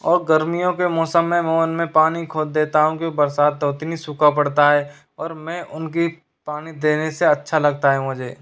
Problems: none marked